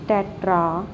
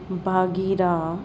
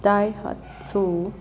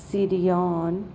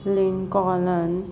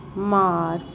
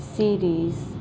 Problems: constant background noise